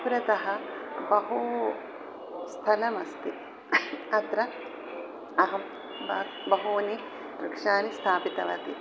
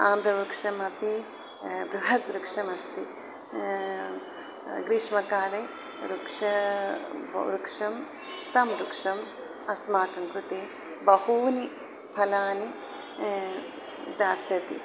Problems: background sounds at intervals